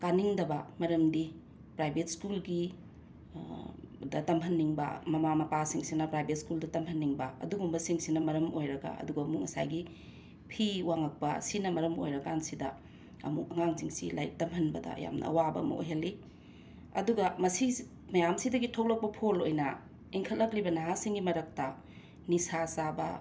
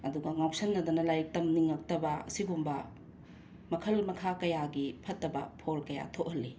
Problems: constant background noise